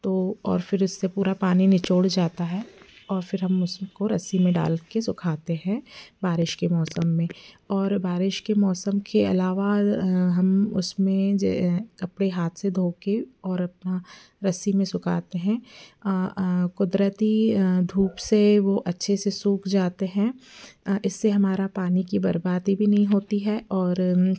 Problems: background sounds at intervals